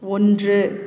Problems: none marked